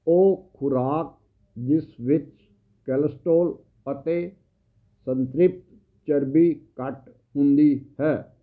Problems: constant background noise